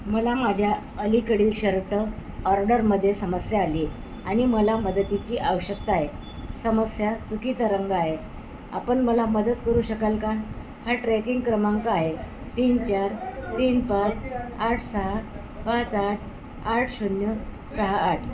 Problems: constant background noise